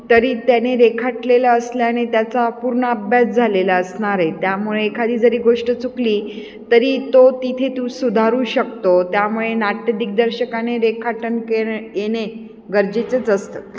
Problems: none marked